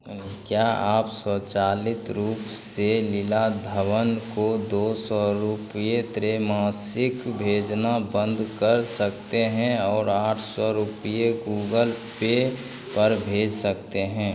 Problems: none marked